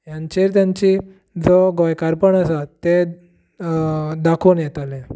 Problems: none marked